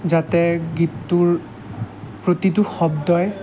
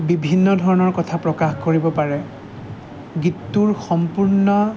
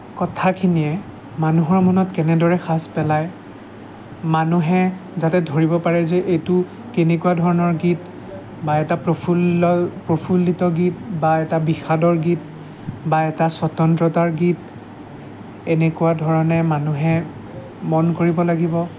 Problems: constant background noise, background conversations at intervals